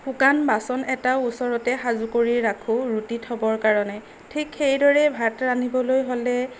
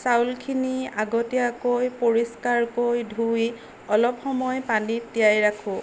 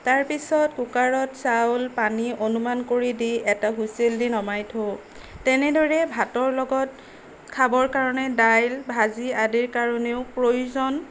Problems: background sounds at intervals, background conversations at intervals